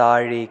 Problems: constant background noise